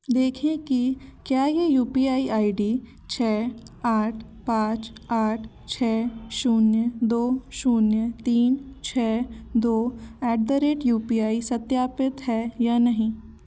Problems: constant background noise, continuous background conversations